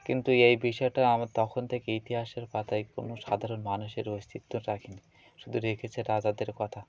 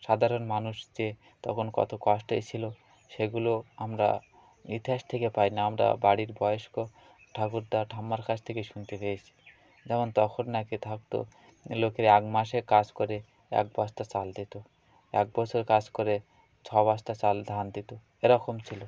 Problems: none marked